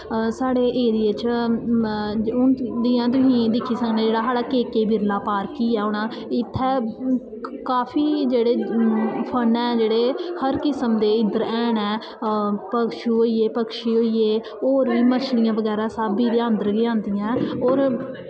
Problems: echo